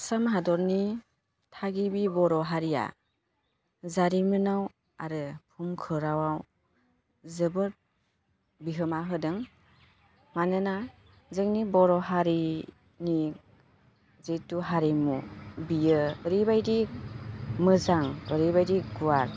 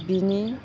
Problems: constant background noise